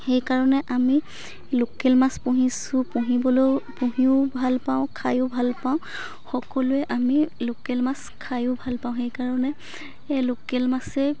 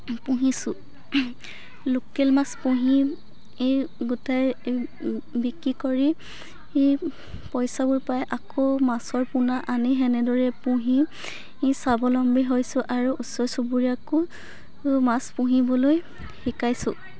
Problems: background sounds at intervals, continuous background conversations